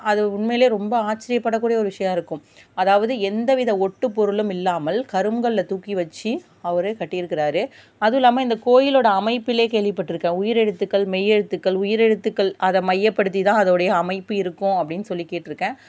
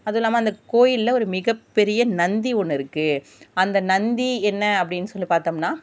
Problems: none marked